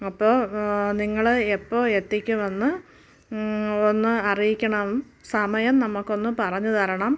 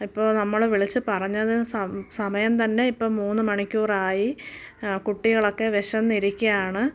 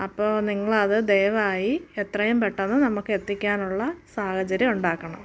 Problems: background sounds at intervals